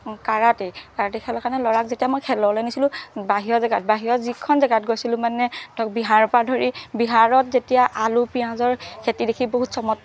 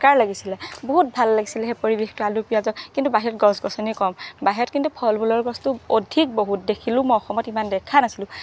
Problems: background sounds at intervals